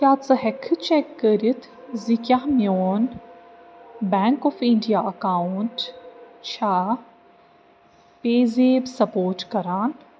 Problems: constant background noise